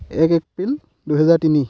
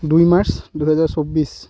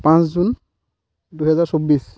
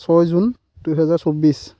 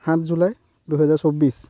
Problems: none marked